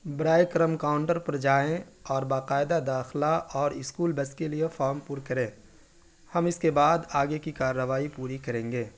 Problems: none marked